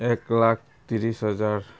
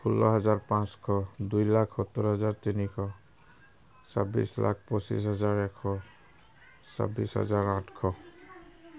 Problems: none marked